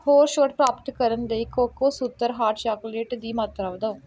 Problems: none marked